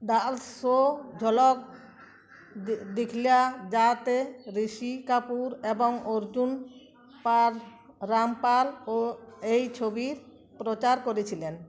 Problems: none marked